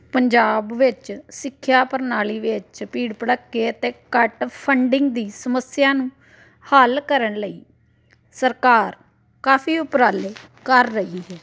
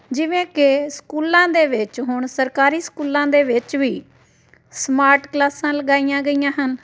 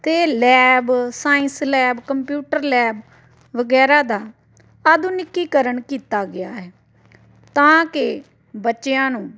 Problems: constant background noise